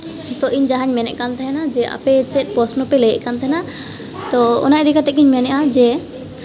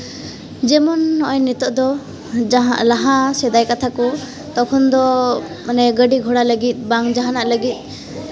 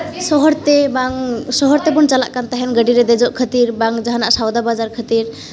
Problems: constant background noise